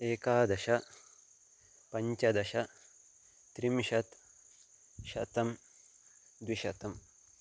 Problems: constant background noise